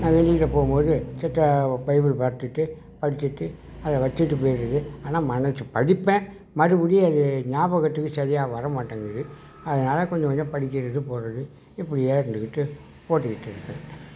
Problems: background sounds at intervals